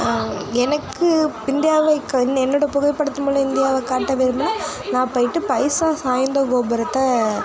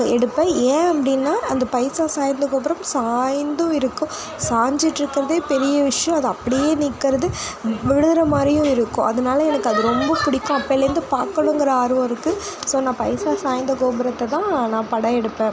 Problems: constant background noise